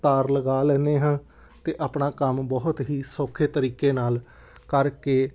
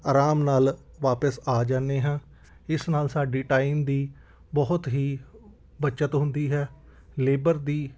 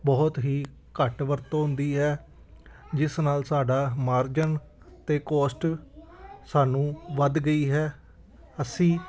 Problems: background sounds at intervals, background conversations at intervals